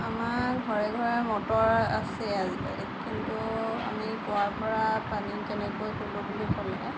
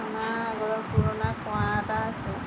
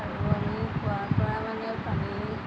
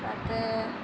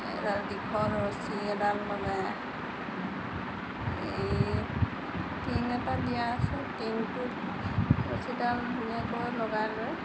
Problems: constant background noise